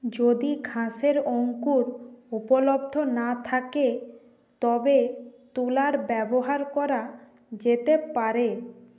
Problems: constant background noise